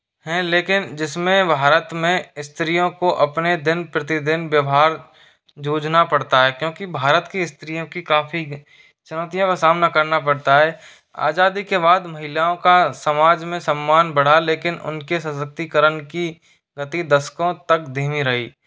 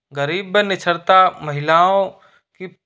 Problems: constant background noise